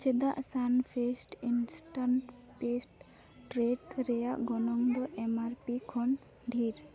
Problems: background sounds at intervals, continuous background conversations